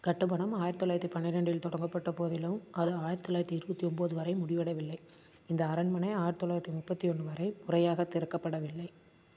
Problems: constant background noise